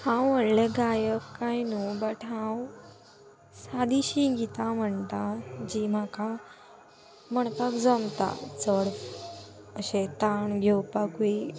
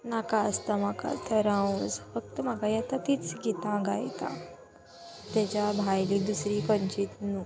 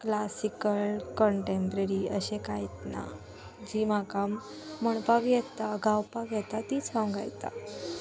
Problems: constant background noise, background conversations at intervals